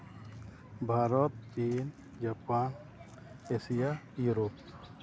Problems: constant background noise, background conversations at intervals